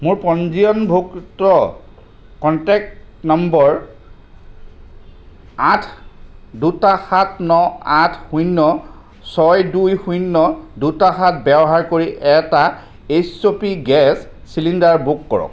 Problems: background sounds at intervals